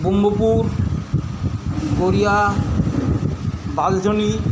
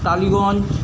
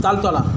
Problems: constant background noise, continuous background conversations